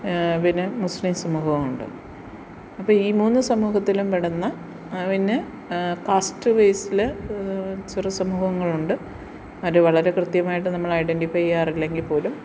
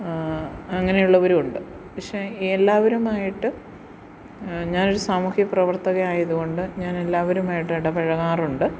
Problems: background sounds at intervals